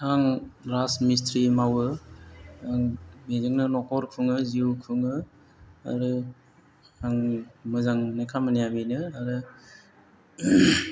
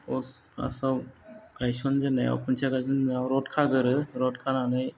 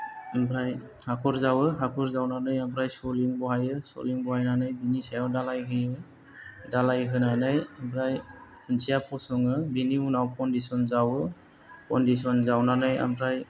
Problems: low volume